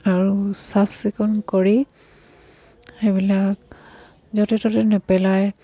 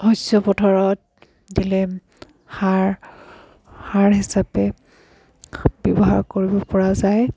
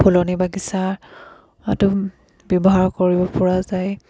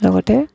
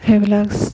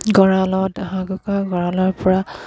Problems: background sounds at intervals